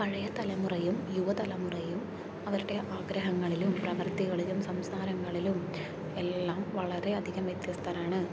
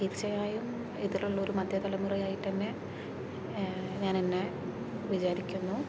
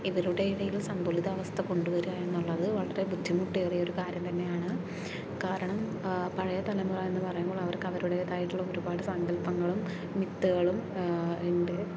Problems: low volume